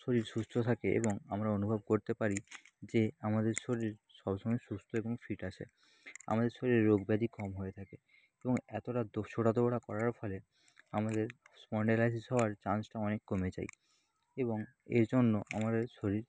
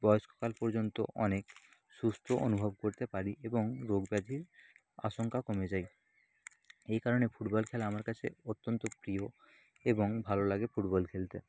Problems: constant background noise